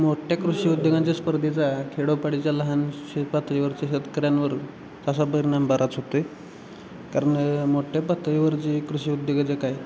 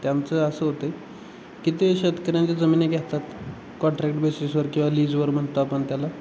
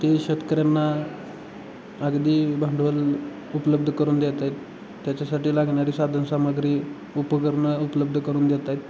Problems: constant background noise